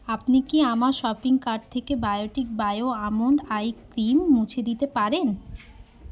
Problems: none marked